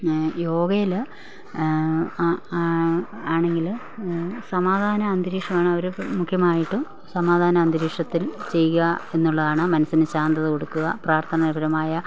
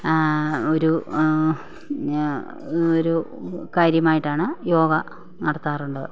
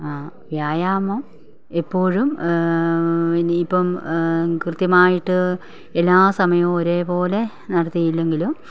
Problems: none marked